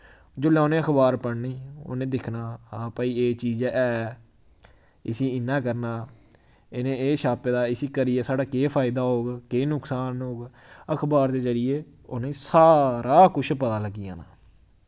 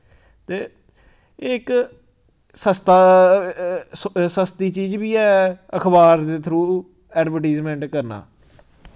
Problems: none marked